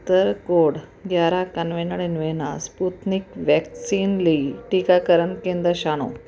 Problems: none marked